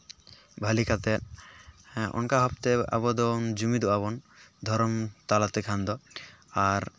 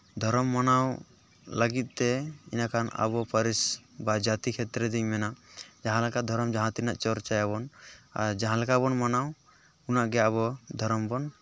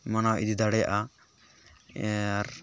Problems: background sounds at intervals, background conversations at intervals